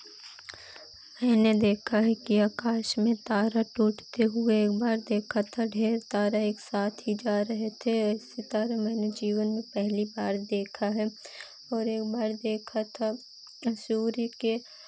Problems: constant background noise